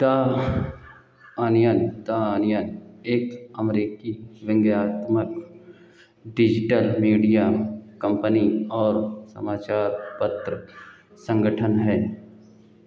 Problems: none marked